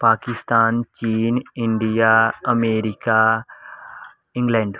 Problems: constant background noise